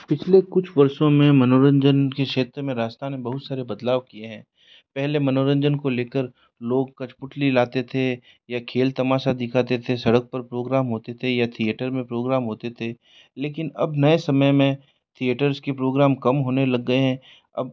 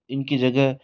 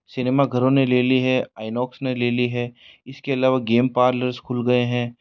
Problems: background sounds at intervals